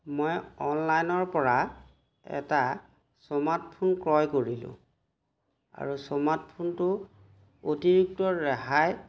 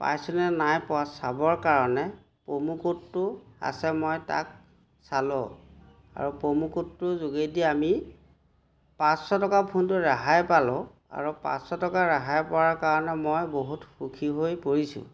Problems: none marked